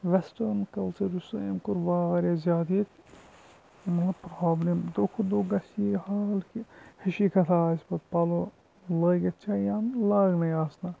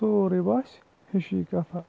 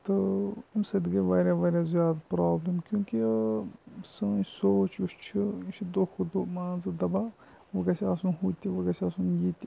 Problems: constant background noise, low volume